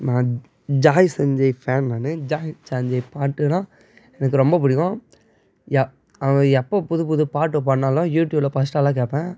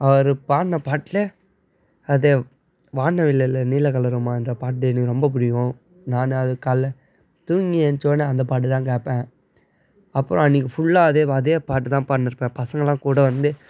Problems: none marked